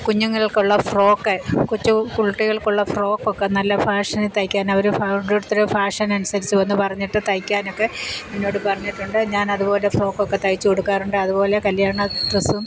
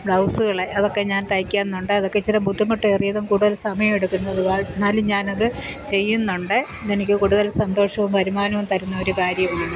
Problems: constant background noise